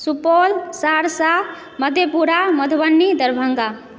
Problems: background sounds at intervals